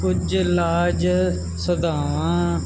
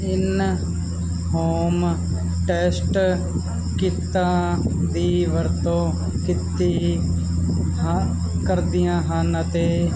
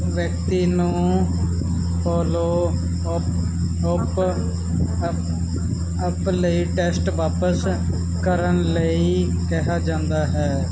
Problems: none marked